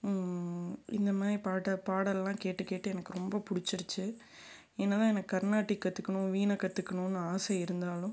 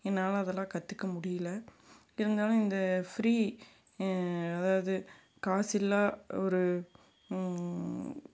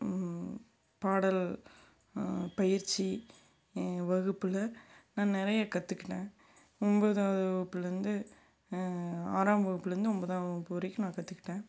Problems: background sounds at intervals